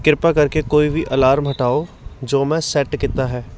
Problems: background sounds at intervals